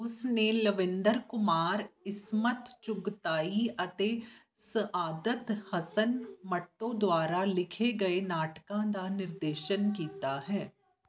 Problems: background conversations at intervals